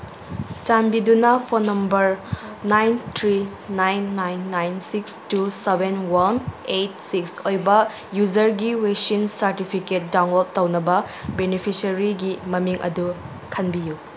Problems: background sounds at intervals